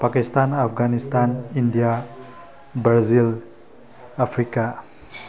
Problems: constant background noise